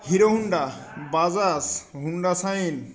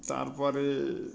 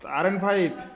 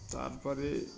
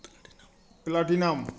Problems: continuous background conversations